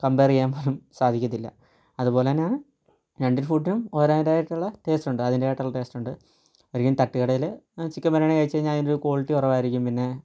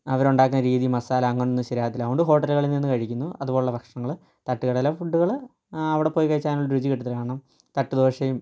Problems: low volume